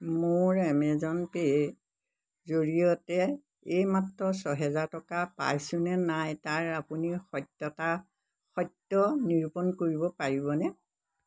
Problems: constant background noise